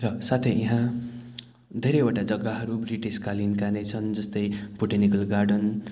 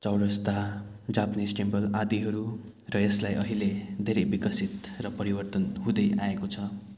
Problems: none marked